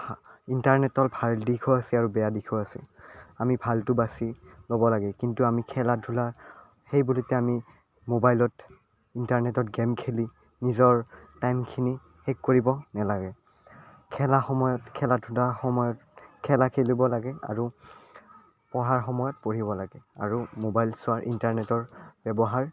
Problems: none marked